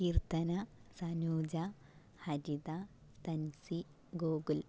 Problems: low volume